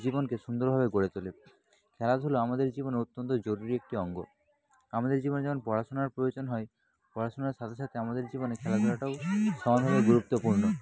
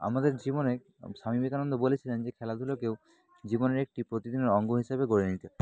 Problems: background sounds at intervals, continuous background conversations